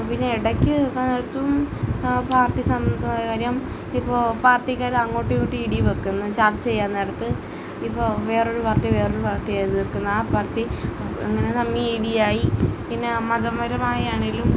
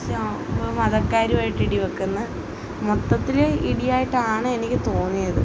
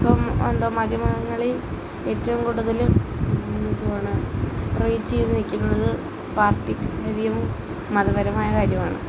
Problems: constant background noise